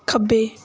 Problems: background sounds at intervals